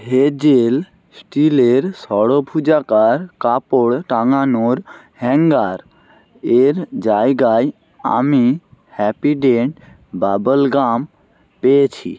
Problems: constant background noise